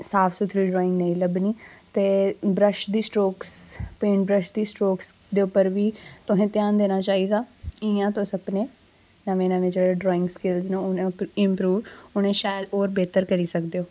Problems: constant background noise